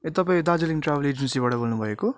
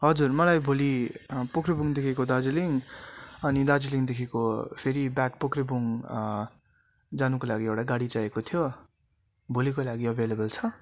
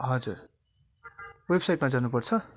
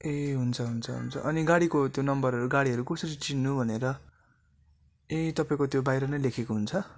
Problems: constant background noise